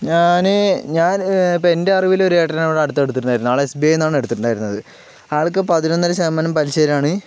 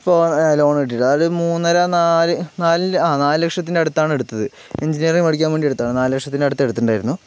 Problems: background sounds at intervals